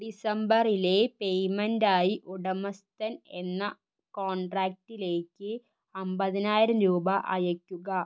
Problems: low volume